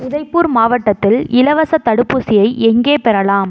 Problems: none marked